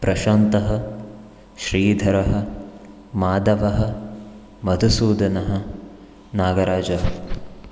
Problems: none marked